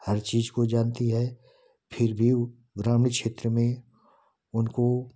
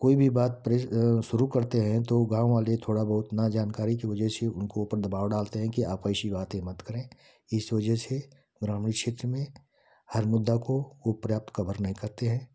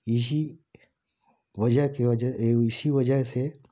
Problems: none marked